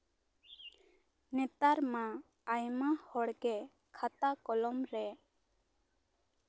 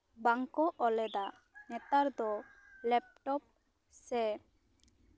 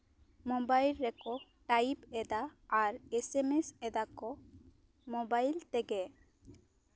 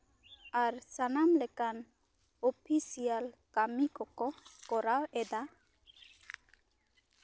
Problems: constant background noise